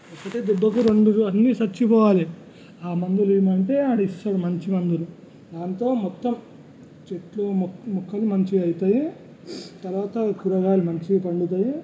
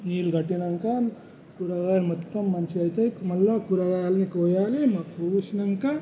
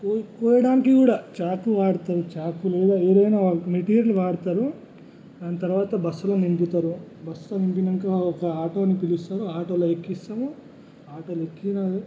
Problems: background sounds at intervals, low volume